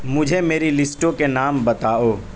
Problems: constant background noise